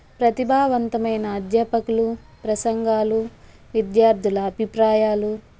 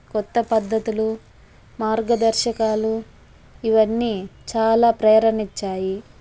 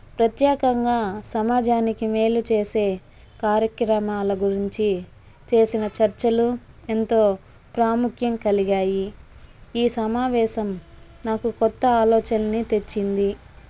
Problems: none marked